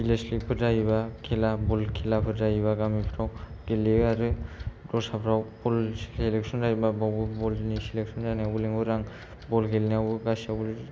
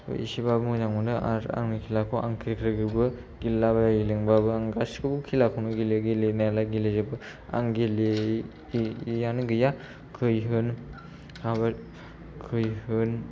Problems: low volume